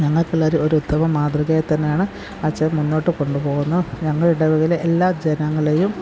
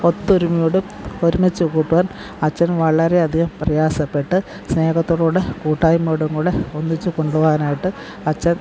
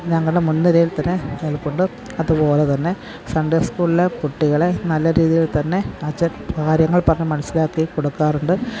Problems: background sounds at intervals